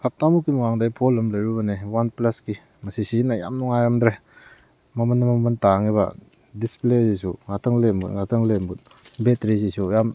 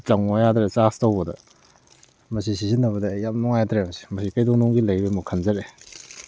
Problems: background sounds at intervals